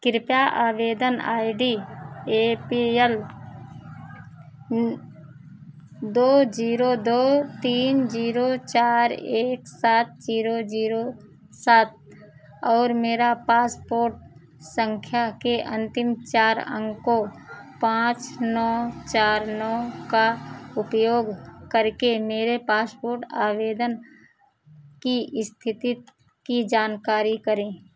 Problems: none marked